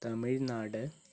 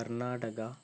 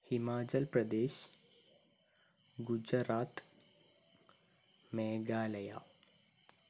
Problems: low volume